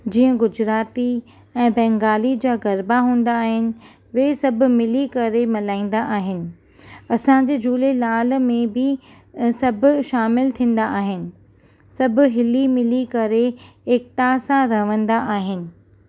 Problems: none marked